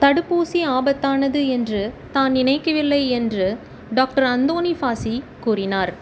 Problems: constant background noise